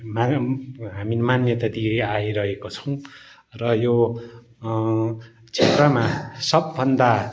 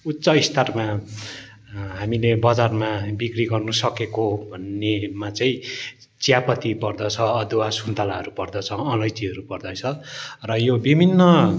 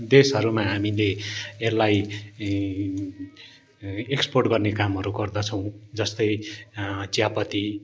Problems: none marked